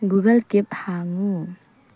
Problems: low volume